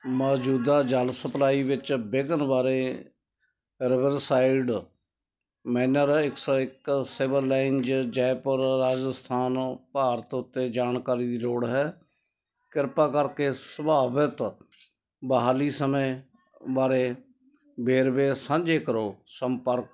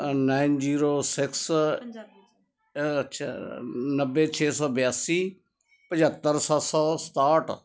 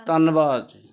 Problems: continuous background conversations